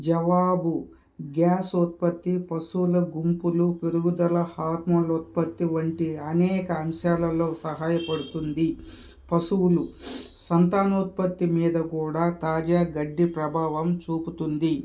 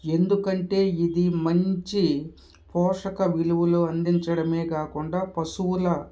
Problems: background sounds at intervals, background conversations at intervals